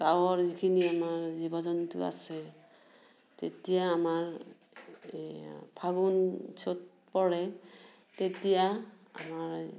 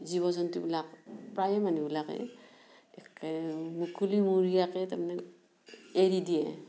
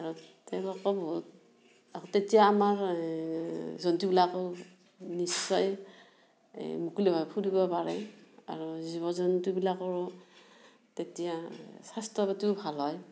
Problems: background sounds at intervals